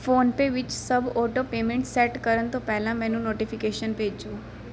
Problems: background sounds at intervals